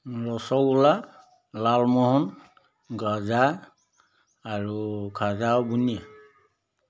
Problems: none marked